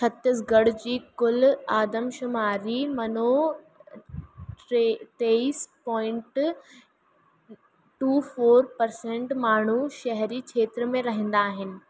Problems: constant background noise